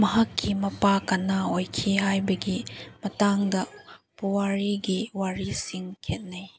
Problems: background sounds at intervals